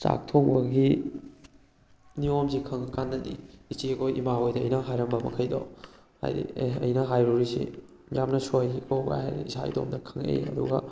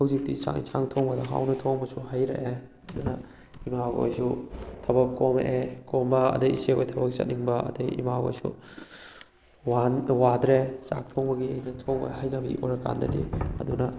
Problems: background sounds at intervals